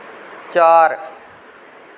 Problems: none marked